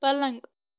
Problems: none marked